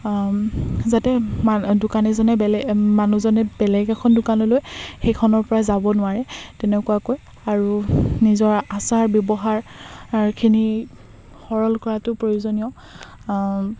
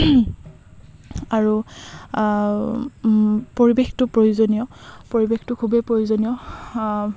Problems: constant background noise